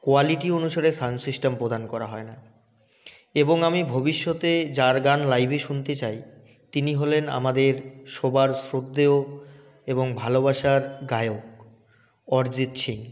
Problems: none marked